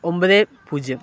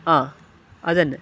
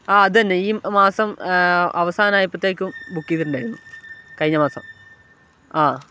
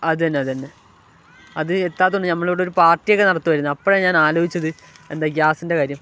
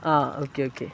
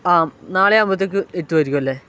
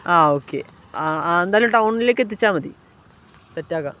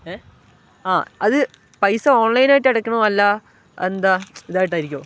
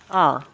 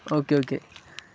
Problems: none marked